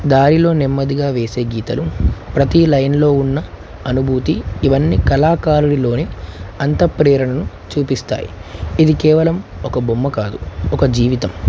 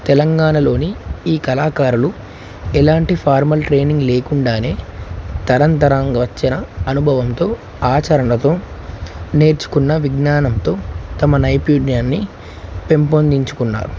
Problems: constant background noise